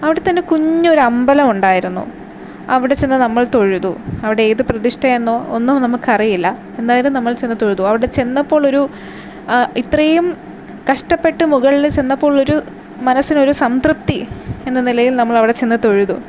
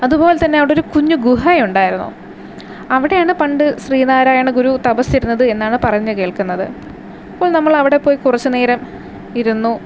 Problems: constant background noise